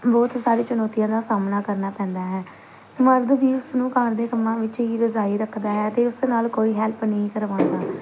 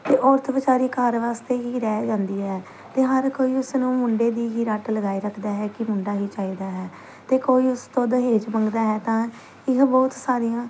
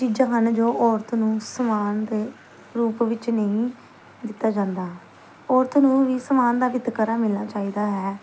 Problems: none marked